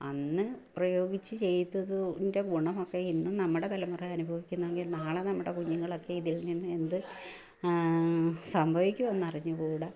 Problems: low volume